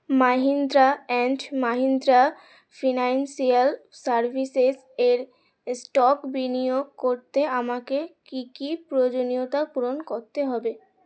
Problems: constant background noise